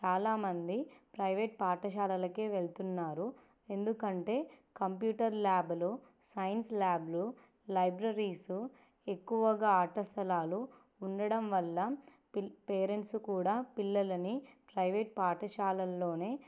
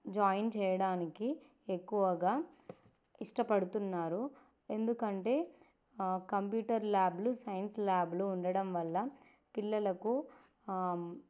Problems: none marked